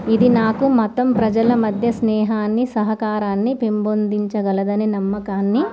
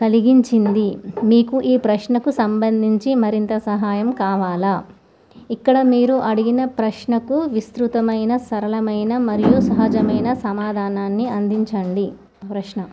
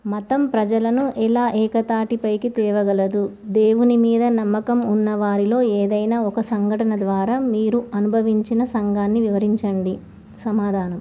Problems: none marked